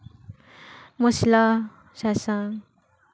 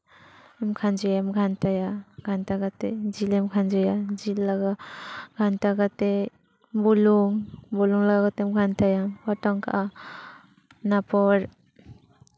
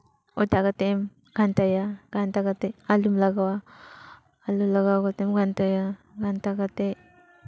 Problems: background conversations at intervals